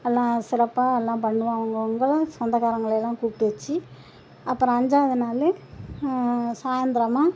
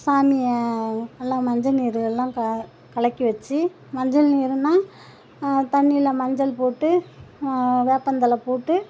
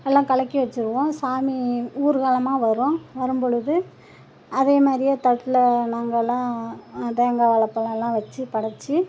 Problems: none marked